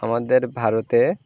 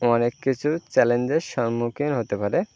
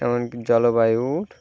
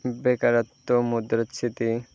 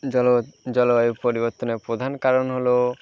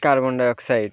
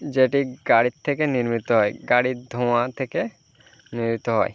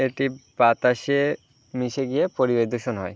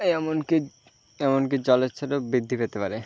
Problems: constant background noise